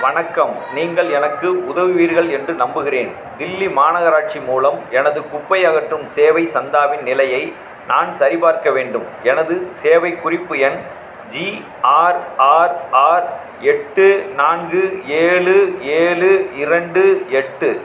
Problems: background sounds at intervals, background conversations at intervals